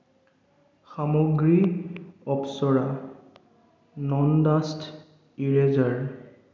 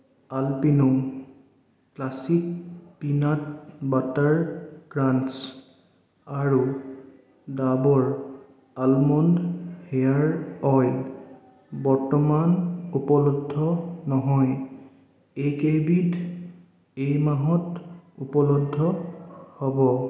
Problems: echo